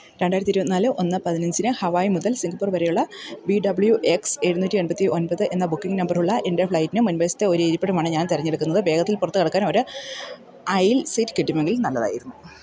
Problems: none marked